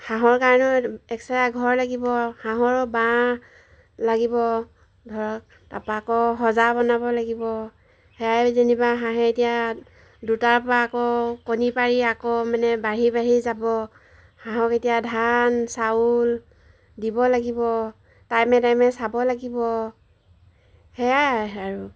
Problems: background sounds at intervals